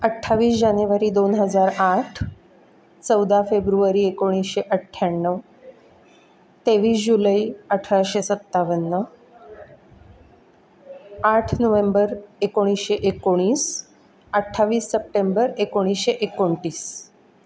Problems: none marked